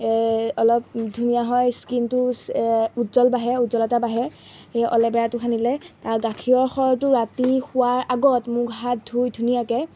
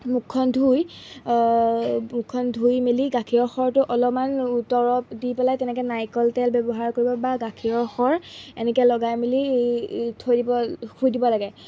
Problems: background sounds at intervals